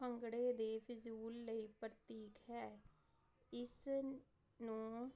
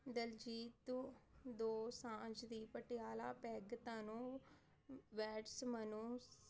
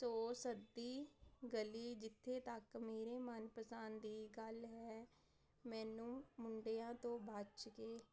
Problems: constant background noise